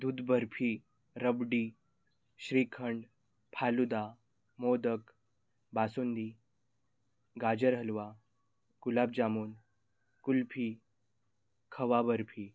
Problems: background sounds at intervals